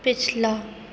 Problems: none marked